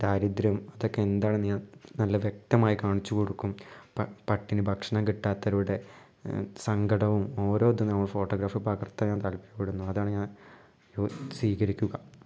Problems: low volume